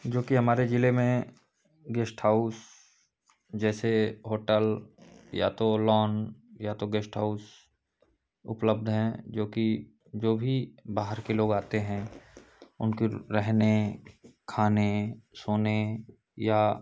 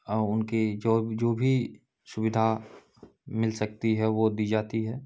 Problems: background sounds at intervals, background conversations at intervals